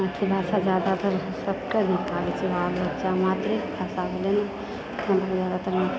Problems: none marked